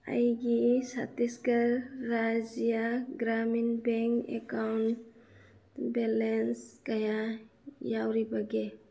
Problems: low volume